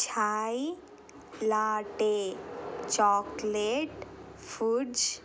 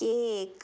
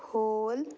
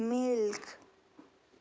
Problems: none marked